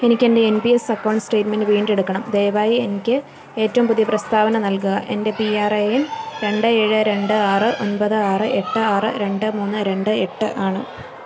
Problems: none marked